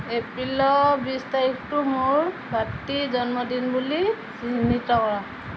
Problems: constant background noise